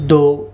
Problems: constant background noise